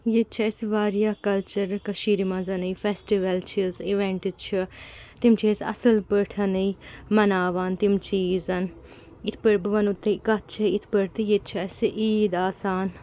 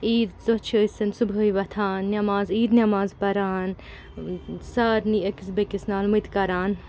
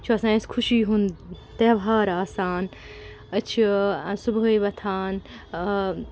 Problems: constant background noise